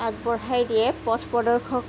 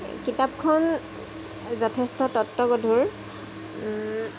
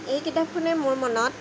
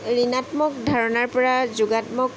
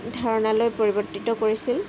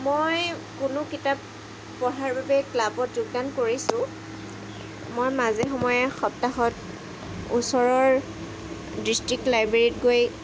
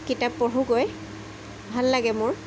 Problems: constant background noise